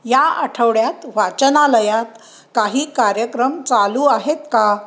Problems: background sounds at intervals